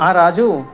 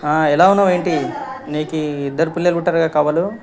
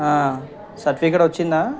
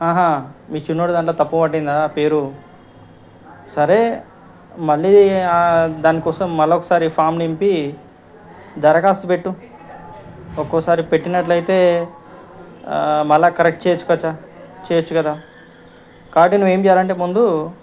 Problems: background conversations at intervals